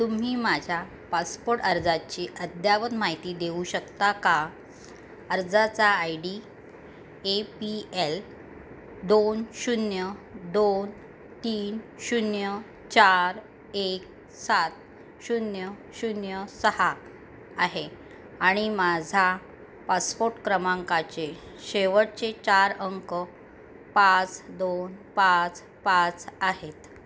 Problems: none marked